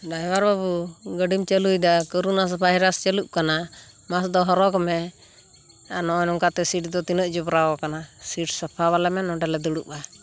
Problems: none marked